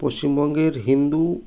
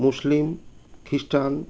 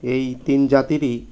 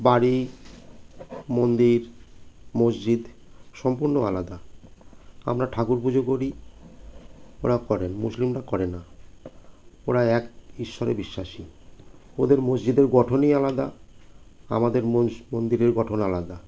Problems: constant background noise